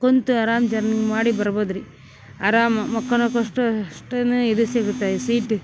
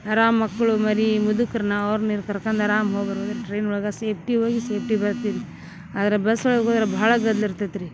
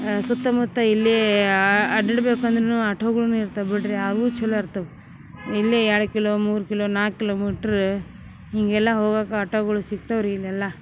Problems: background sounds at intervals